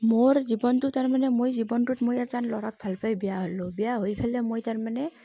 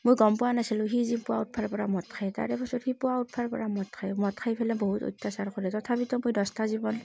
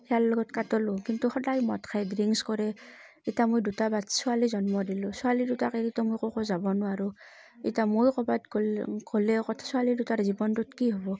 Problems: constant background noise